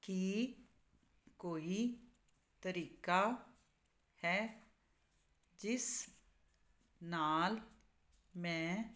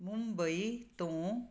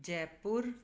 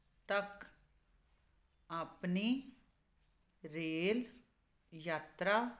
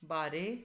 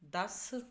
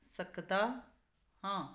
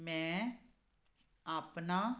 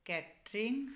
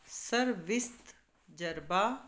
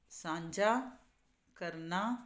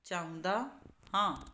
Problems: constant background noise